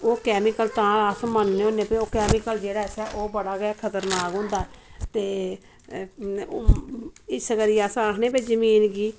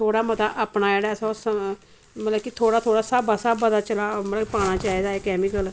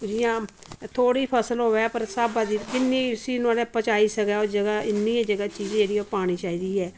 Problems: none marked